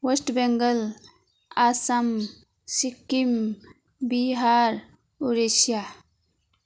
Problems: continuous background conversations